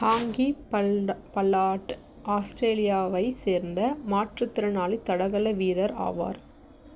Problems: background sounds at intervals